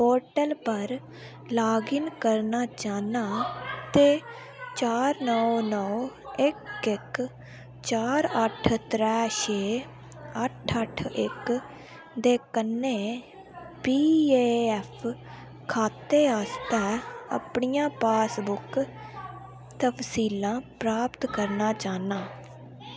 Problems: constant background noise